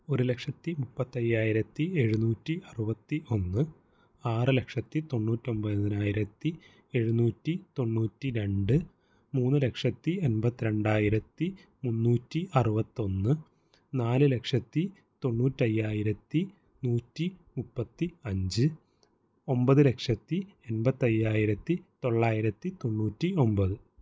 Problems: low volume